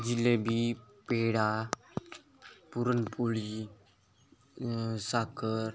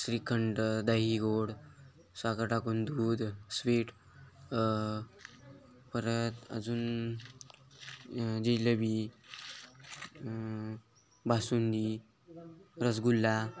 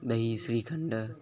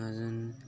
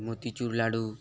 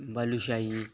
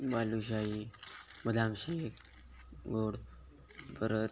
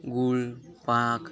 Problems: none marked